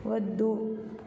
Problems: low volume